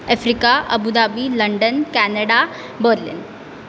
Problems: constant background noise